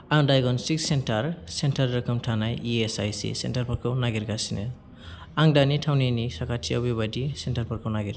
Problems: none marked